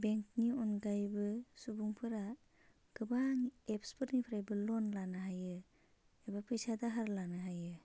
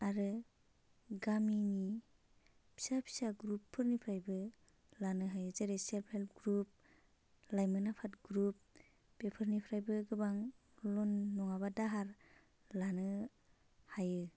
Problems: none marked